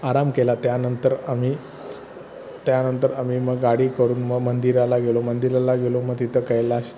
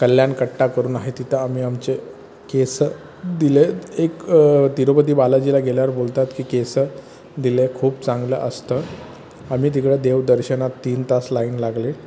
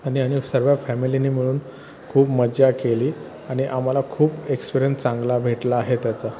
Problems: constant background noise, background conversations at intervals